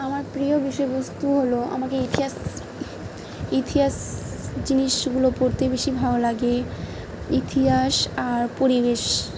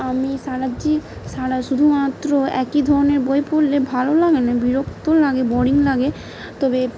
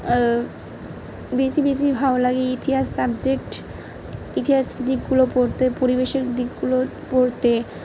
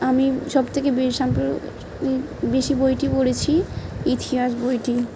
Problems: background sounds at intervals